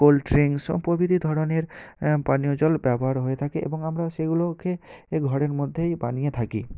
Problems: none marked